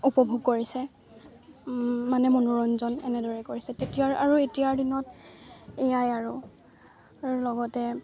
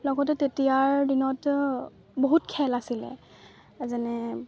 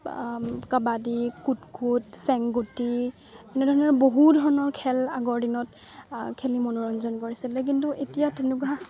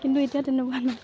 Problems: constant background noise, continuous background conversations